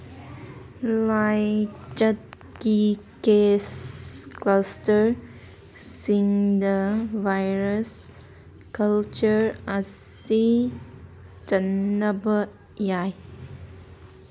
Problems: background sounds at intervals